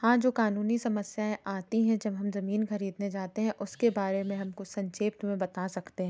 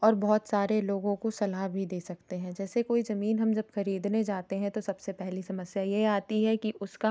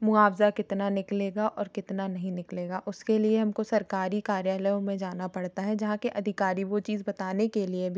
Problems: background sounds at intervals